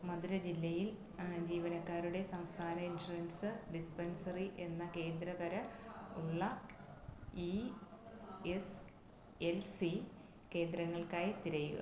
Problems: low volume